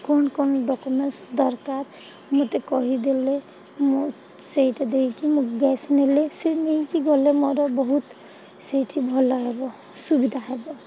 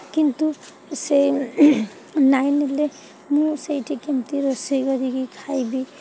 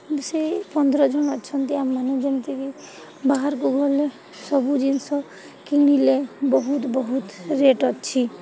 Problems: none marked